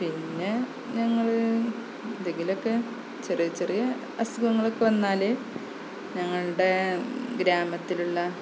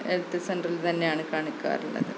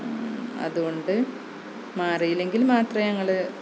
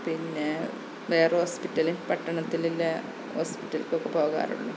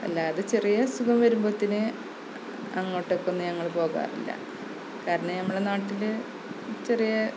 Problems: constant background noise, low volume